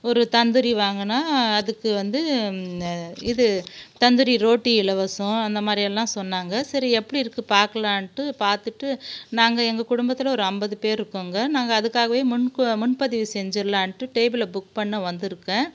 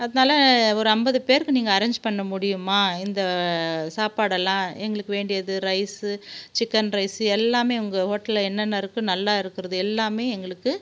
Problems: background sounds at intervals